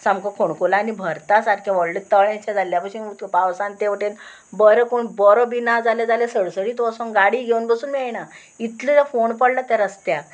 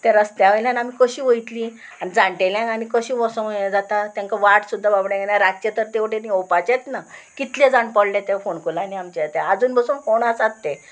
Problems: constant background noise